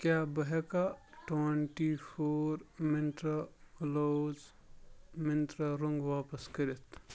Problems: none marked